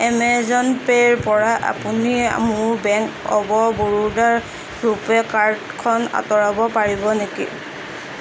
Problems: constant background noise